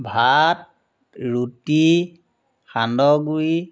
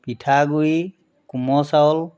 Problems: constant background noise